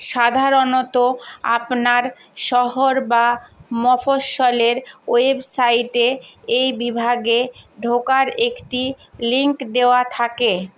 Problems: constant background noise